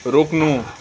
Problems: constant background noise